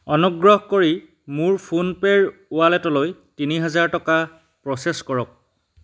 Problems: none marked